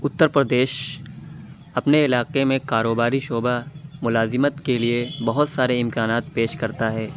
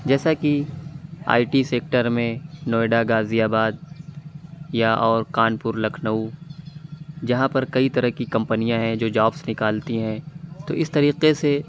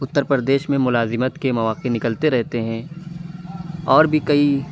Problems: constant background noise